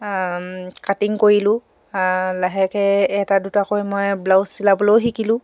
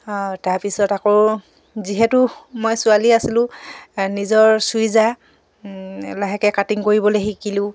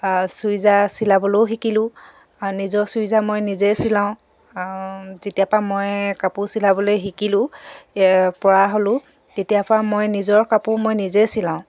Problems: none marked